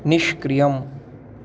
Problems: constant background noise